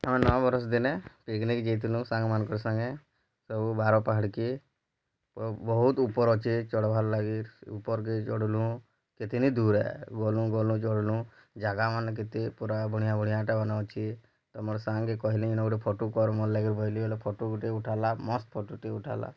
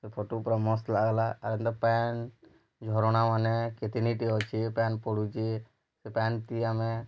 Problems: low volume